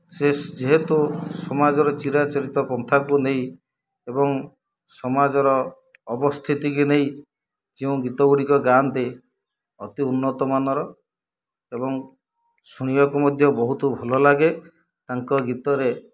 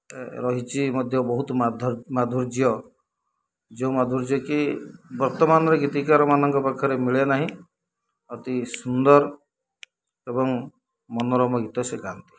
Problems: low volume